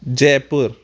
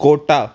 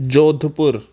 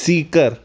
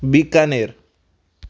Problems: constant background noise